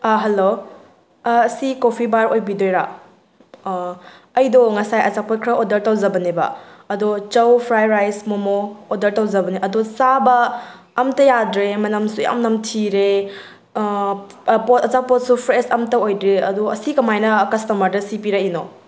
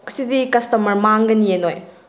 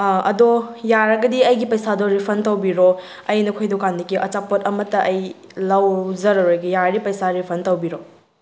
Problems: background sounds at intervals